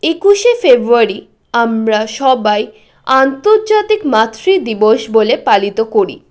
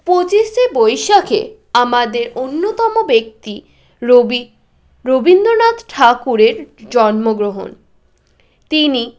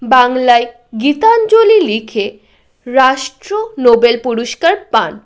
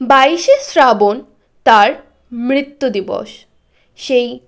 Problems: continuous background conversations